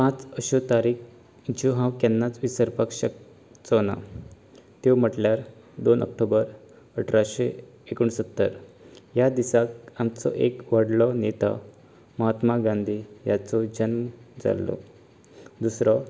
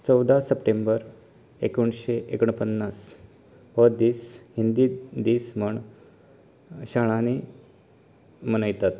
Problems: background conversations at intervals